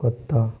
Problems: background sounds at intervals